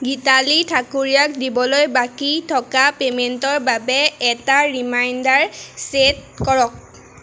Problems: constant background noise